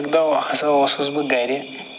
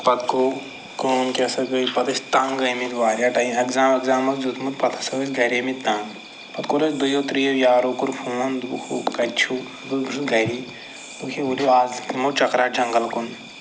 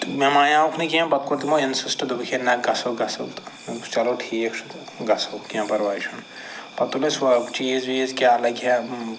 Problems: constant background noise